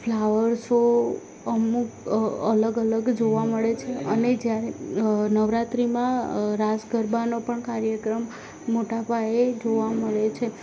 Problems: none marked